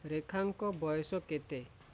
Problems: low volume